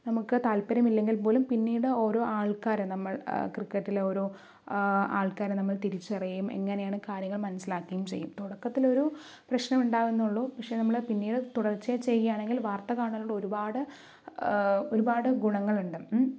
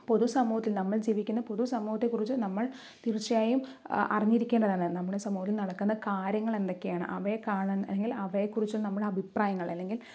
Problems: background sounds at intervals, low volume